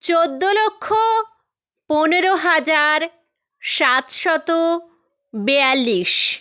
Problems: none marked